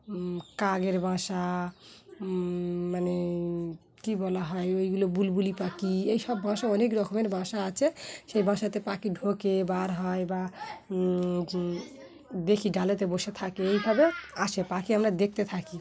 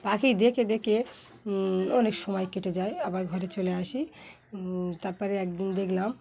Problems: constant background noise, background conversations at intervals